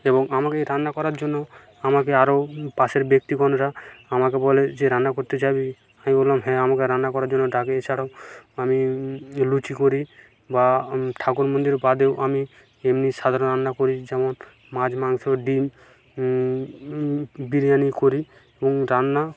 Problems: none marked